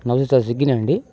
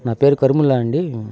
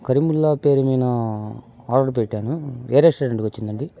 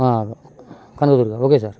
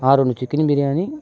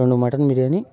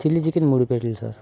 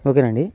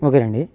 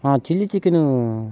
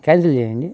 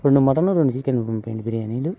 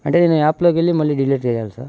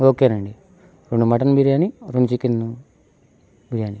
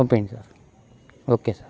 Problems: none marked